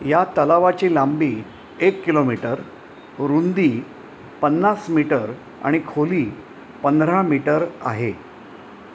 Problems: none marked